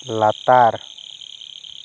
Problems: constant background noise